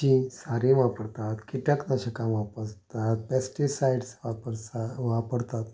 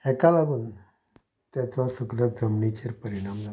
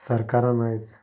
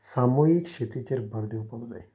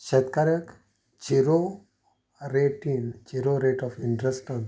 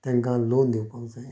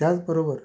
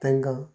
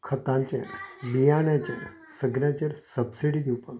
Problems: background sounds at intervals